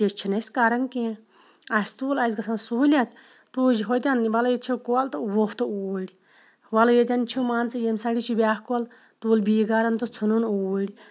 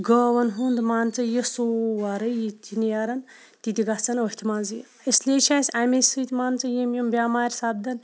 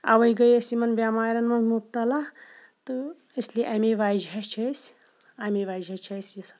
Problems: background sounds at intervals